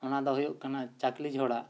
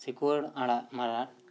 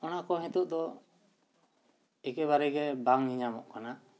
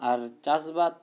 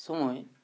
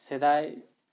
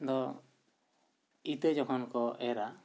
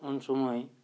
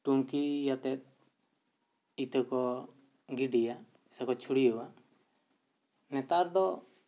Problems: none marked